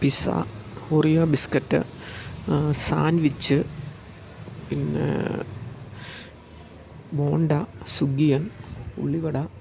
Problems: low volume